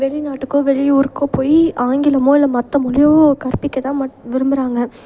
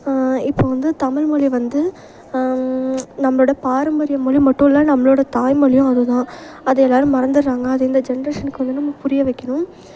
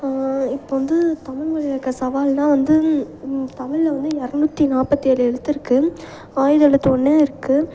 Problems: none marked